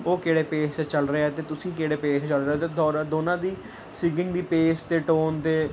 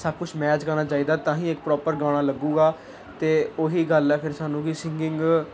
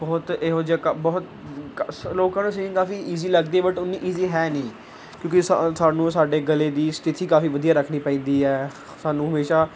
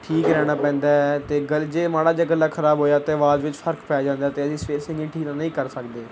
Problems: none marked